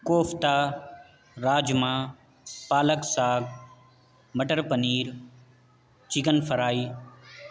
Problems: constant background noise